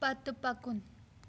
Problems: constant background noise